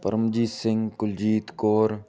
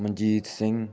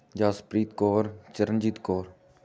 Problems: background sounds at intervals